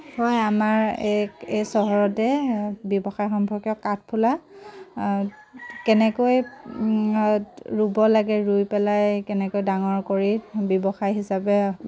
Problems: constant background noise